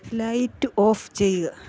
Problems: background sounds at intervals